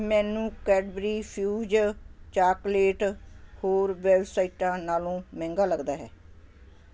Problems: constant background noise